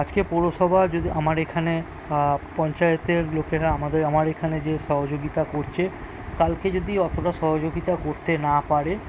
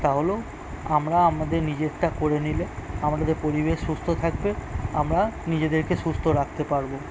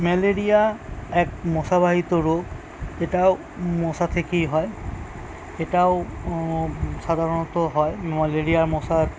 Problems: constant background noise